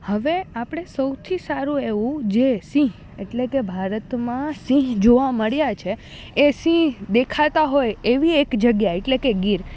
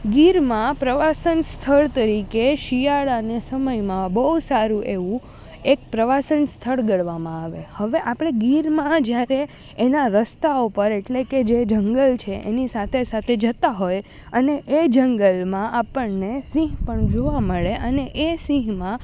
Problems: none marked